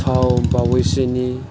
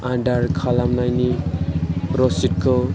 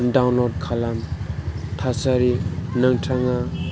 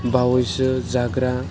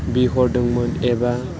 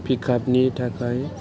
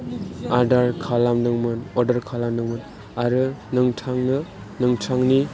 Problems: background sounds at intervals